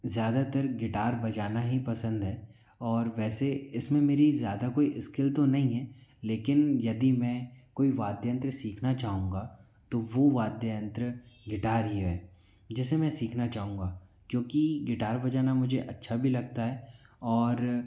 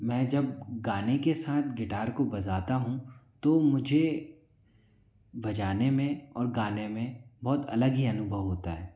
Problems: background sounds at intervals